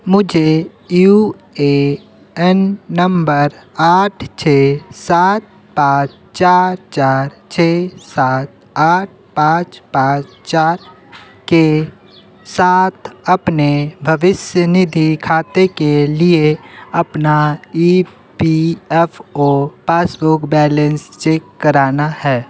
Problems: constant background noise